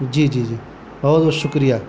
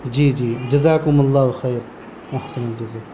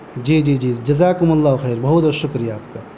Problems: constant background noise